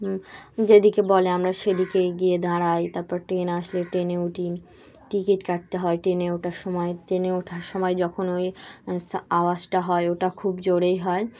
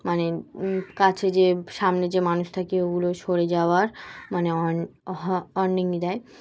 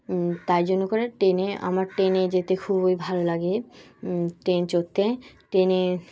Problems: constant background noise